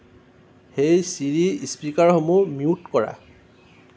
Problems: constant background noise